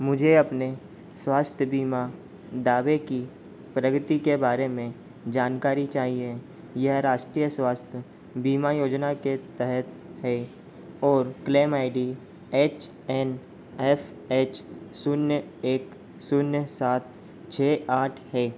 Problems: constant background noise